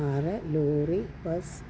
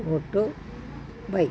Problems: none marked